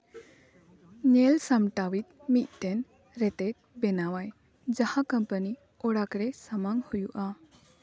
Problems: background conversations at intervals